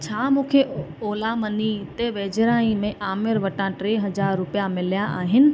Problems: constant background noise